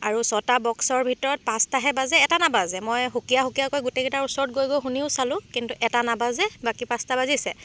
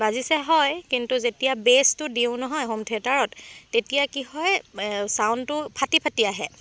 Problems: constant background noise